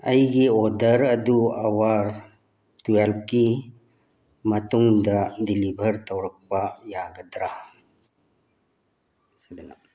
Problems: background conversations at intervals